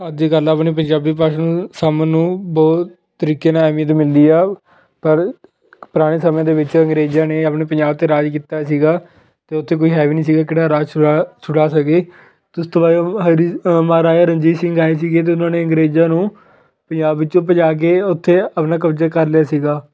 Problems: constant background noise